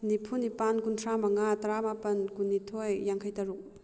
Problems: low volume